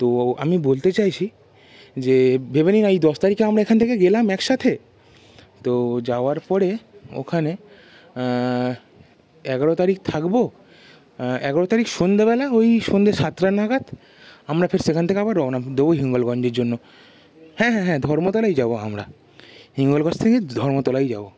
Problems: constant background noise